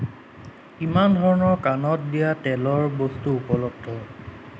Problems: constant background noise